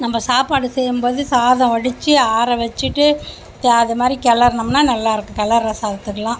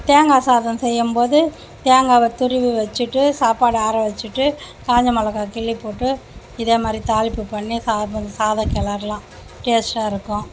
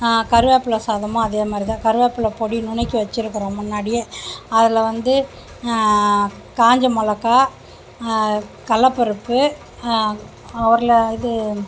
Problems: constant background noise